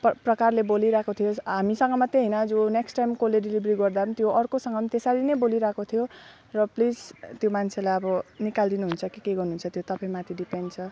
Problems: none marked